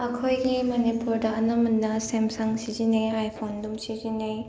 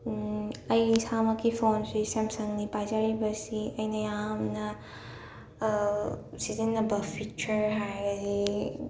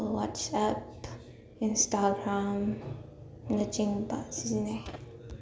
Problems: background sounds at intervals